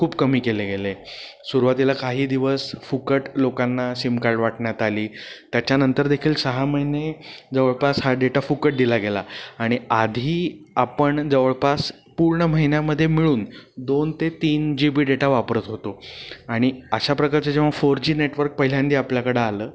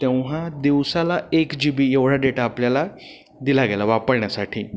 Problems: constant background noise